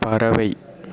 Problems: none marked